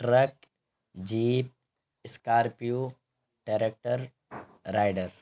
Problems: constant background noise